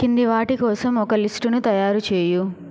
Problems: constant background noise